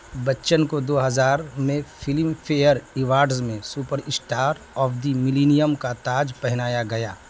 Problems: constant background noise